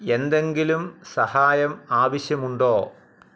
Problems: background sounds at intervals